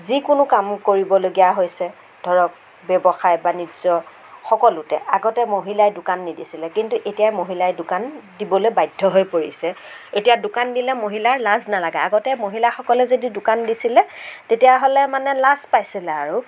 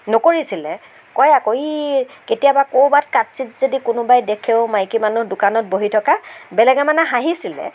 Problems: constant background noise